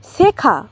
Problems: constant background noise